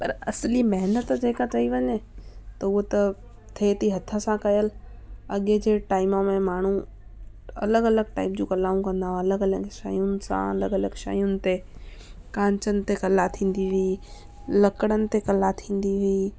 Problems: constant background noise